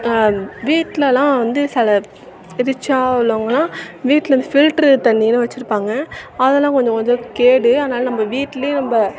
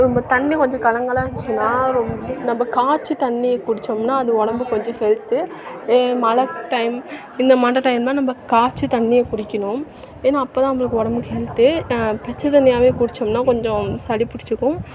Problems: background conversations at intervals